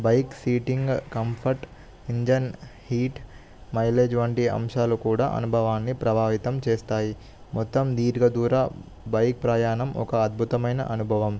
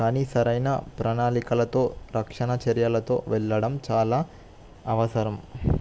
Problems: none marked